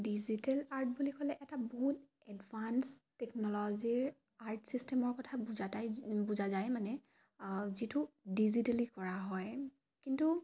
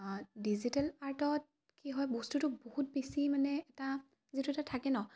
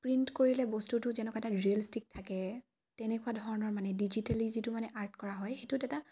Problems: none marked